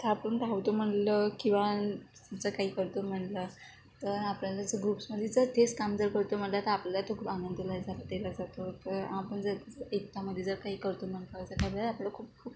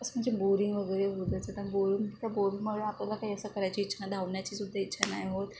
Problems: low volume